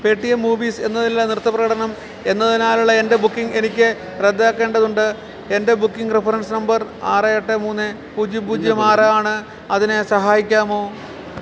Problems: constant background noise